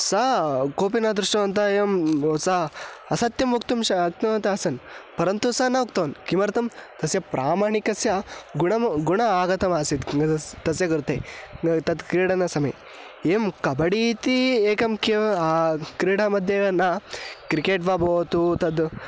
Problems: constant background noise